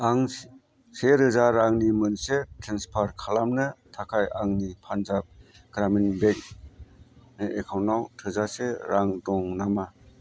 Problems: constant background noise